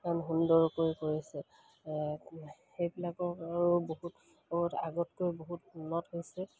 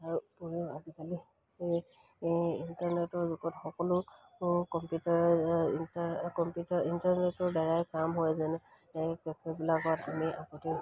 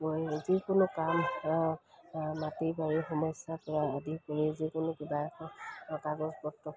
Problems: background sounds at intervals